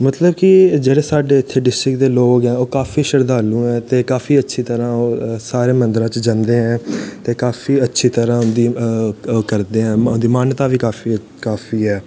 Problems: background sounds at intervals